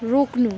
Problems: none marked